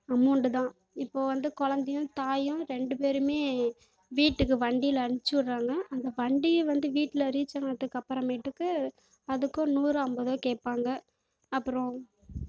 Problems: background sounds at intervals